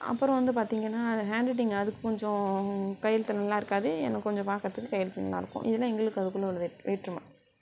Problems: background sounds at intervals